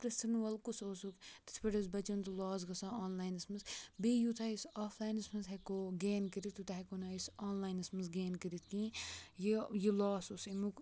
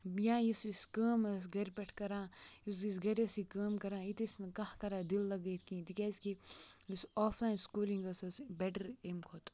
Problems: background sounds at intervals, low volume